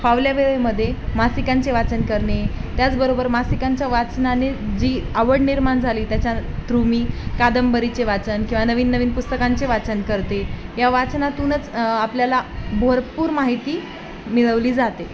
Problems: constant background noise, continuous background conversations